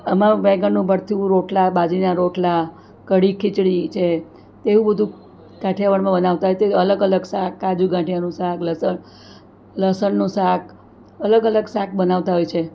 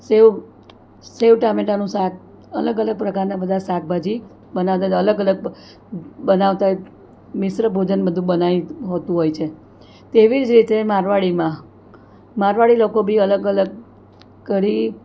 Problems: none marked